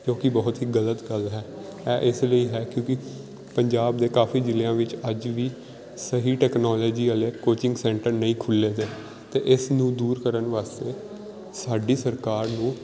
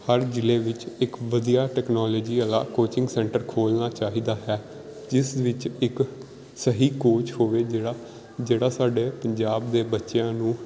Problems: background sounds at intervals